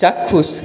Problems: constant background noise